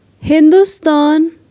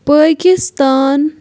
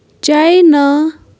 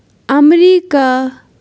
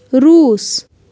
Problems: background sounds at intervals